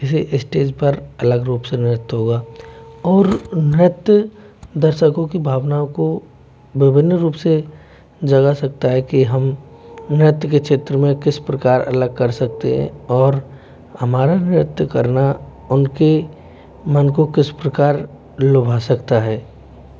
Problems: none marked